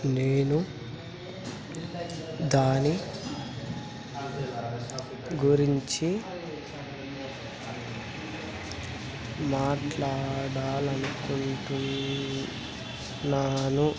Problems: none marked